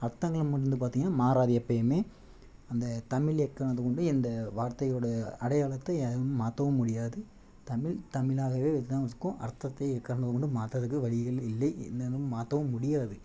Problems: low volume